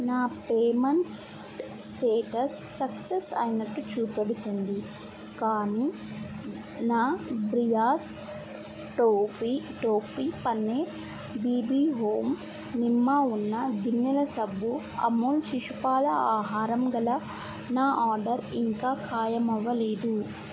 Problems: constant background noise, low volume